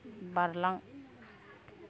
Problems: none marked